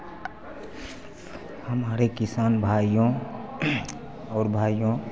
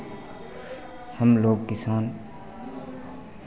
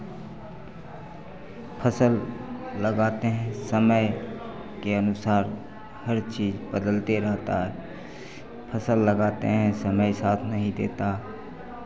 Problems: constant background noise